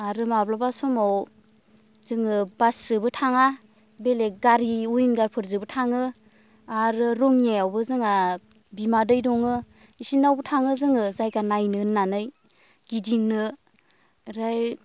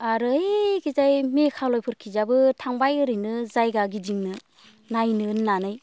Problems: none marked